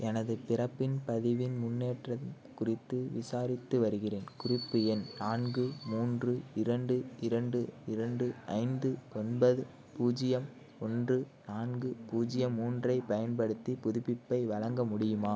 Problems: background sounds at intervals